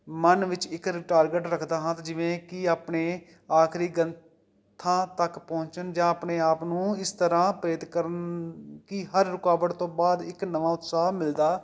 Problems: none marked